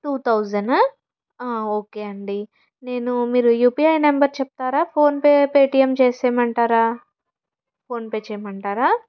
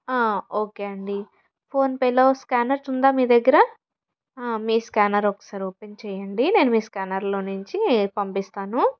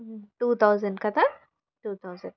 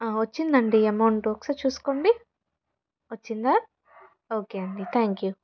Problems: background conversations at intervals